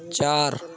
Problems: constant background noise